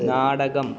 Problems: background sounds at intervals, low volume